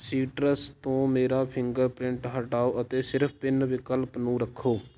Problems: constant background noise